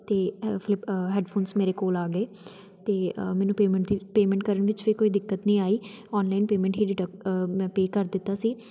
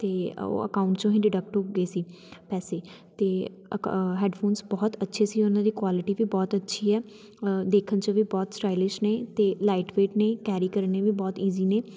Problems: none marked